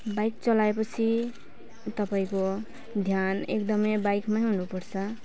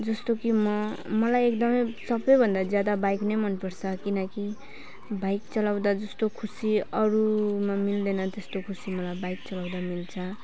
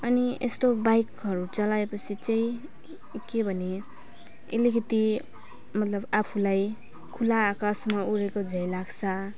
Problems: none marked